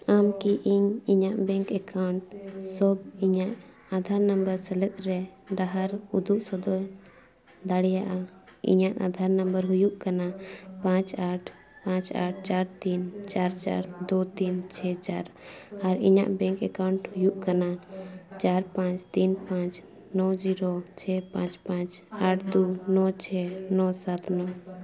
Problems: background sounds at intervals, continuous background conversations